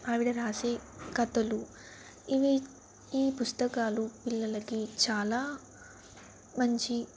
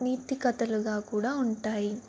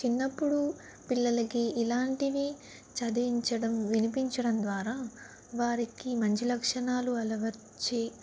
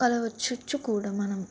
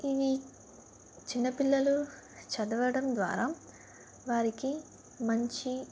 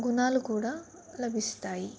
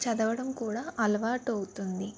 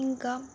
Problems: none marked